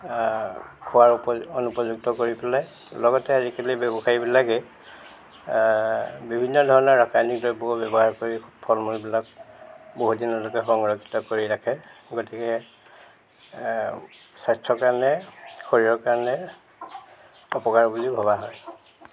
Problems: background sounds at intervals